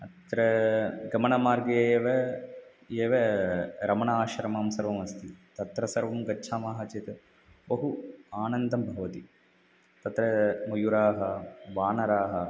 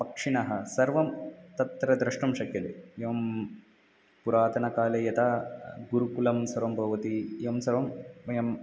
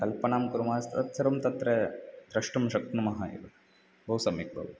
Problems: none marked